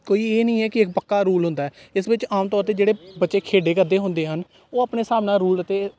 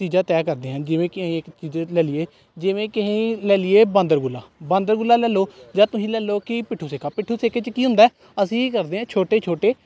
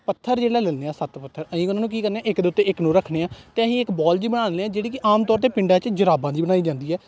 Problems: none marked